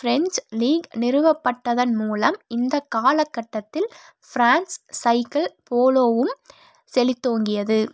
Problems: none marked